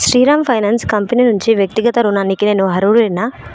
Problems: continuous background conversations